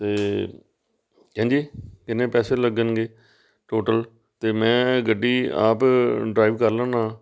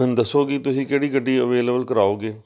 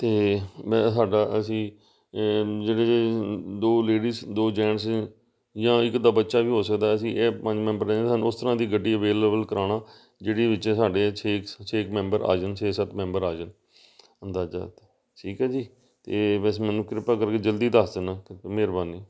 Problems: none marked